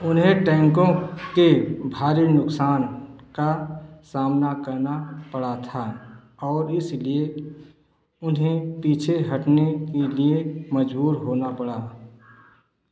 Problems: echo